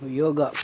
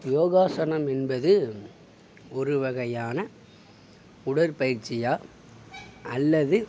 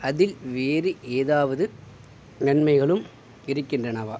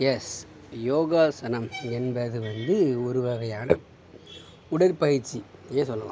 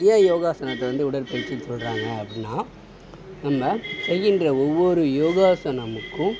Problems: background sounds at intervals